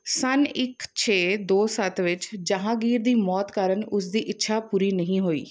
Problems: background sounds at intervals